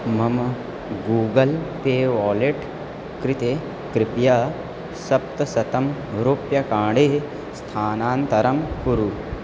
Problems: constant background noise